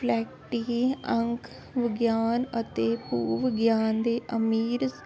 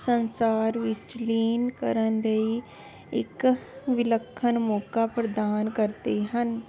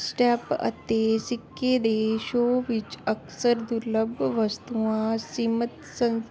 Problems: constant background noise